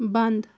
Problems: constant background noise